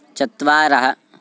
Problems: none marked